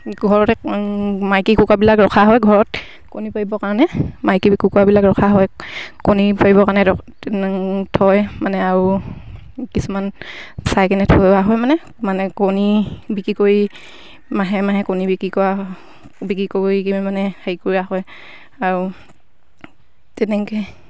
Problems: none marked